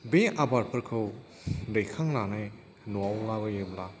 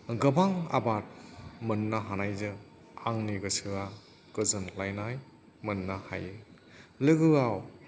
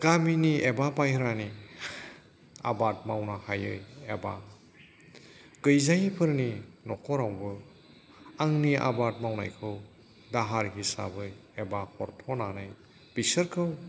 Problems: background sounds at intervals